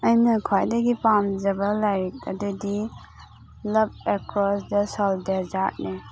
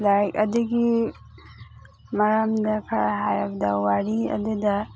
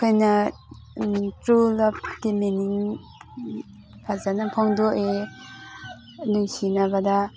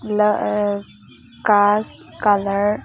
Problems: background sounds at intervals, background conversations at intervals